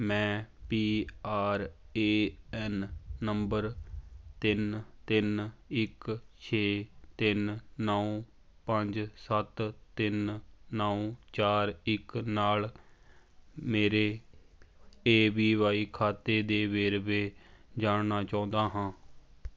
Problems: constant background noise